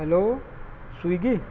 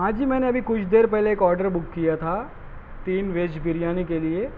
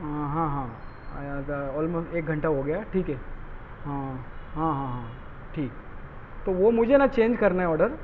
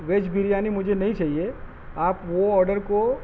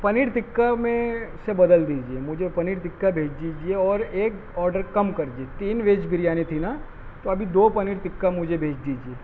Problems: constant background noise, background conversations at intervals